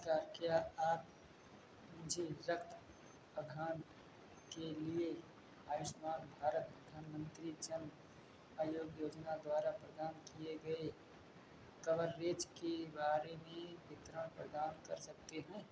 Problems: background sounds at intervals